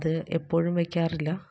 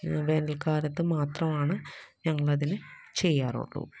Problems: low volume